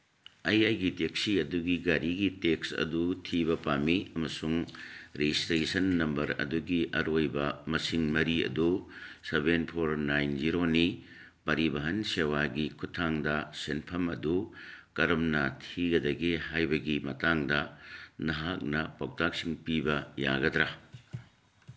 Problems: background sounds at intervals